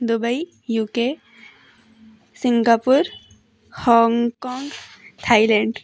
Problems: background sounds at intervals